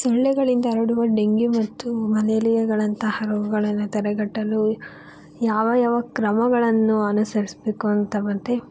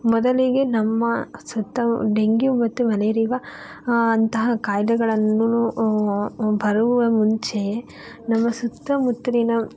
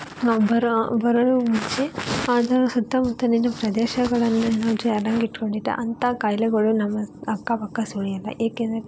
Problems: background sounds at intervals